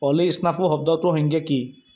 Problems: background sounds at intervals